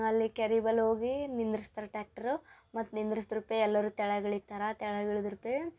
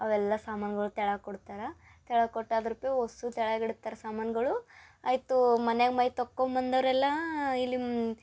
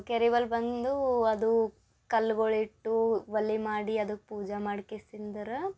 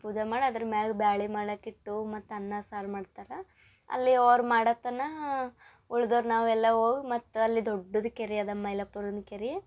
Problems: none marked